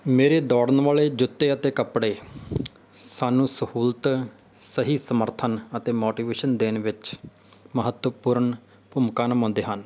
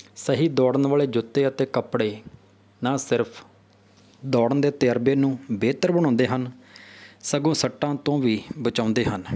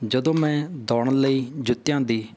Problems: none marked